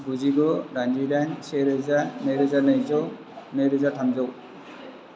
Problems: constant background noise, low volume